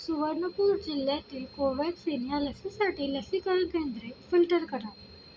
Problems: none marked